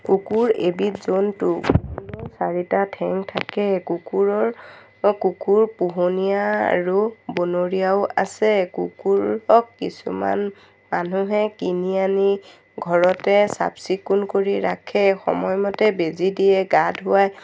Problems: none marked